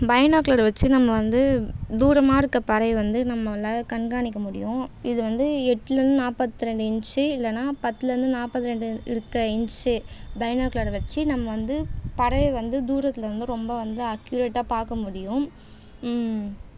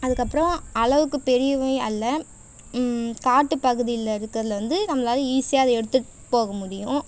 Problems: constant background noise